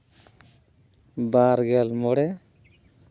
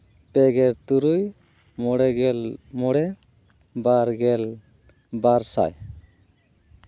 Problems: constant background noise